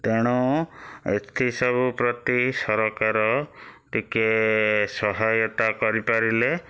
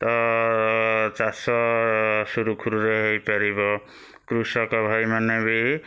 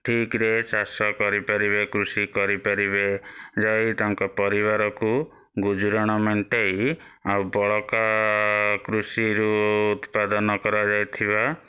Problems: none marked